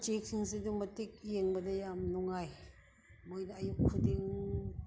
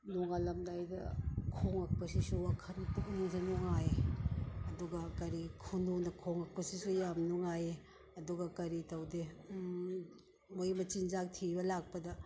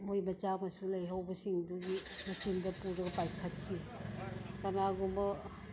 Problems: none marked